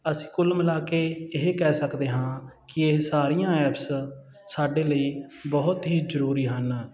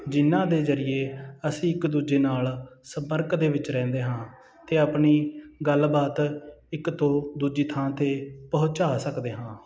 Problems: none marked